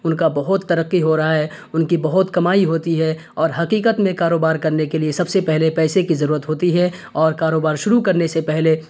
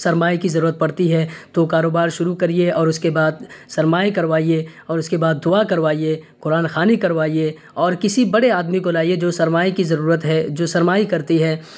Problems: none marked